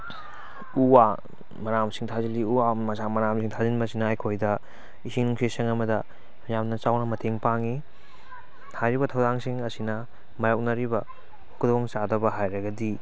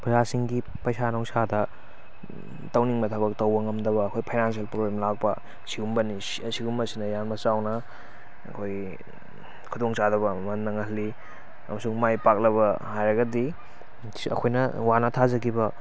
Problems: none marked